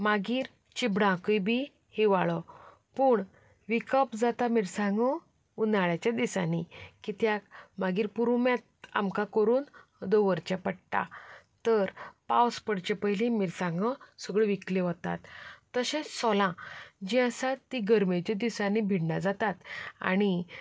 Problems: background sounds at intervals, background conversations at intervals